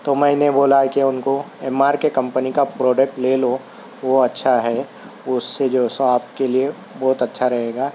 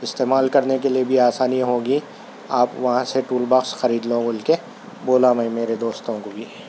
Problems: constant background noise